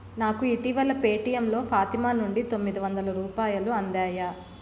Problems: constant background noise